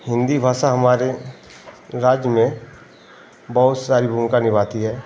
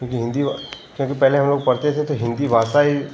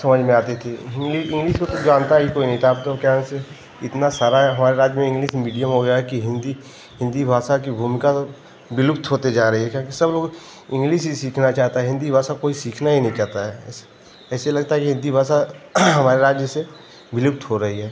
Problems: constant background noise